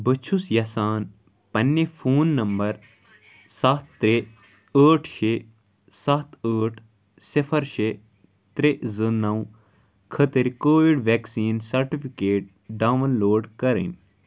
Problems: none marked